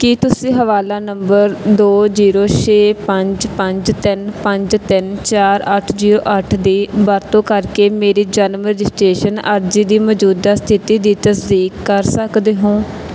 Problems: background sounds at intervals